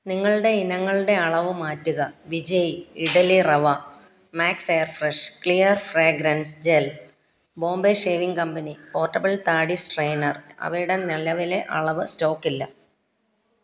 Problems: background sounds at intervals